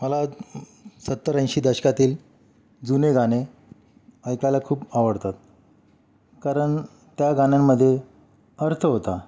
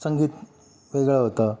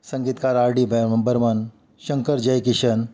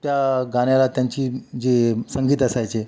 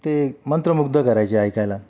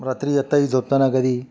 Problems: constant background noise, continuous background conversations